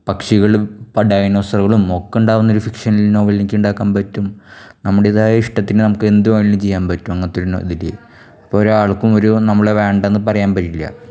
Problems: none marked